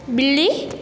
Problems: constant background noise